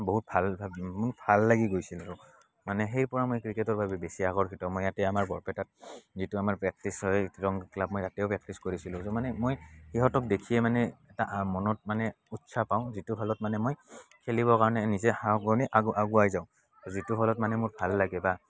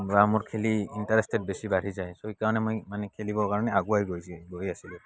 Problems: background sounds at intervals, background conversations at intervals